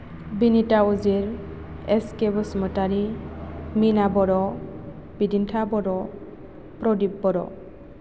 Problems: none marked